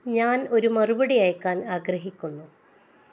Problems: none marked